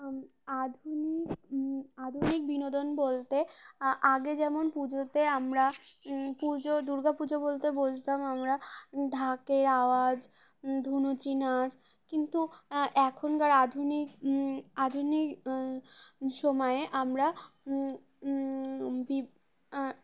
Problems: background sounds at intervals